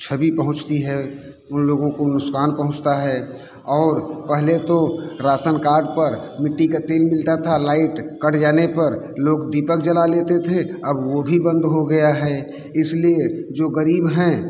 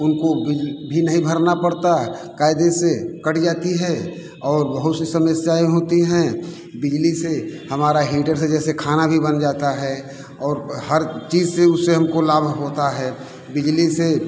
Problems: constant background noise